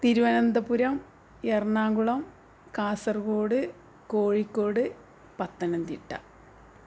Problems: none marked